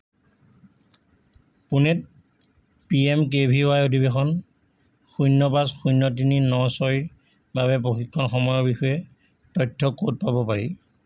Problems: constant background noise